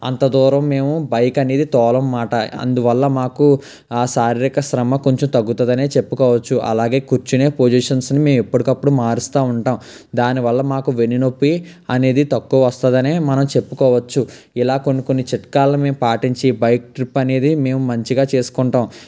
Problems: constant background noise